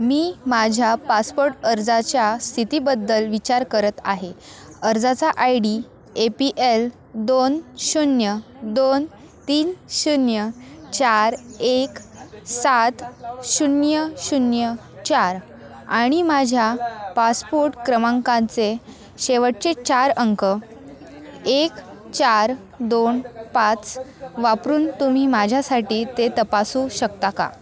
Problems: continuous background conversations